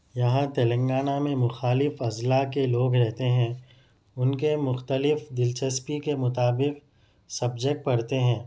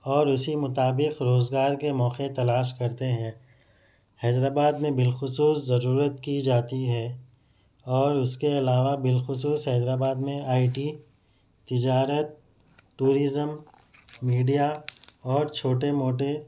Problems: none marked